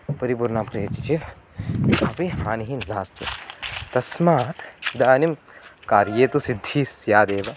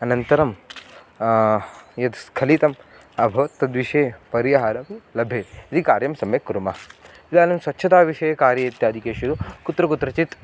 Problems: none marked